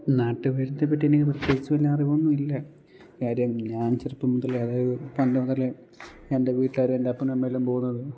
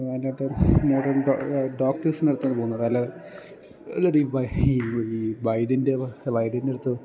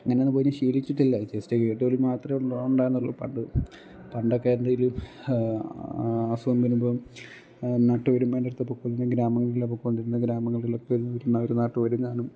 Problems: low volume